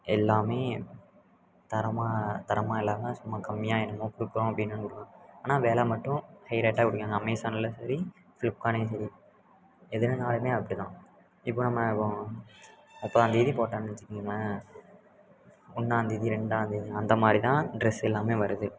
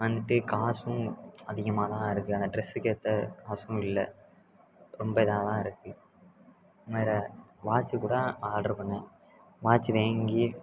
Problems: constant background noise, background conversations at intervals